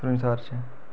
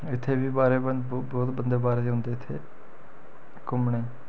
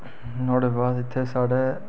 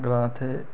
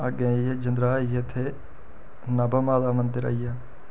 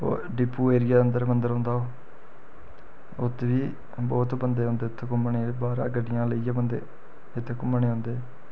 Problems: none marked